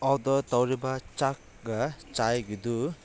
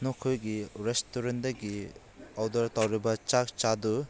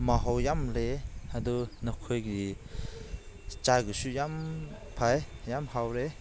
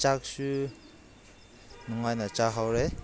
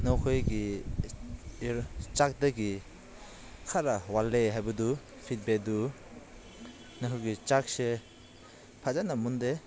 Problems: constant background noise